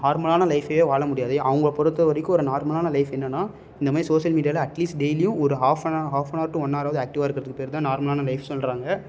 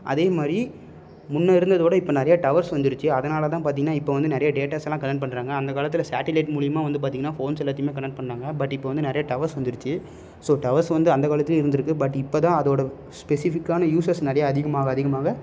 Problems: none marked